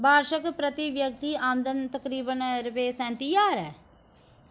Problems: none marked